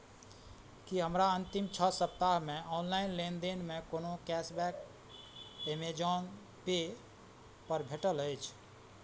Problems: none marked